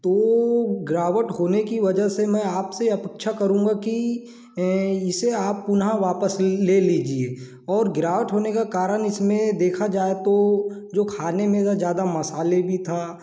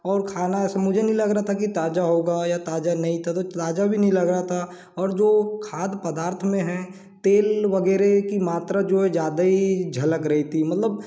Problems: background sounds at intervals, echo